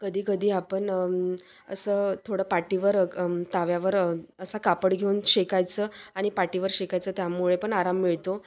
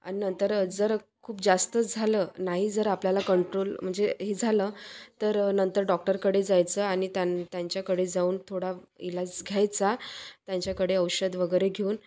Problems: constant background noise, background conversations at intervals, echo